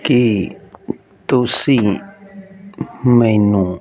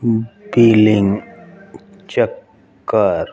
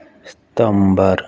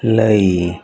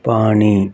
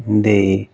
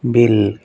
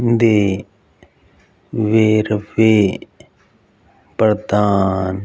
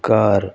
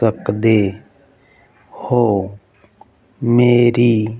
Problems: background sounds at intervals